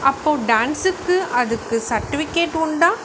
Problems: constant background noise